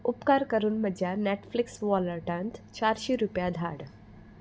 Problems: constant background noise